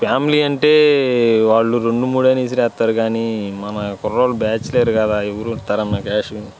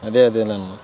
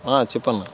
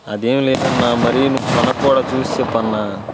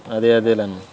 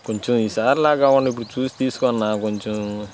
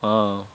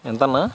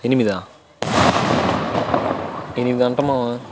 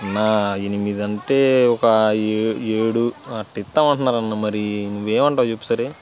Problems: constant background noise